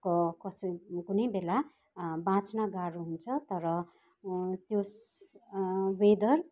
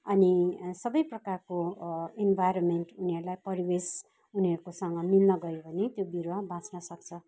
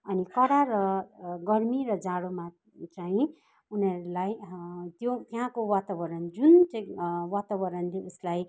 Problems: constant background noise, background conversations at intervals